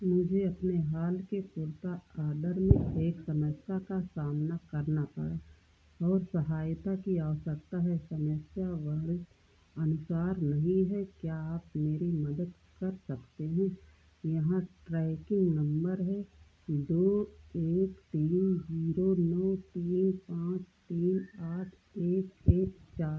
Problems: low volume